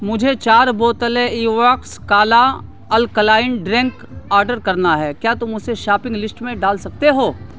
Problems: constant background noise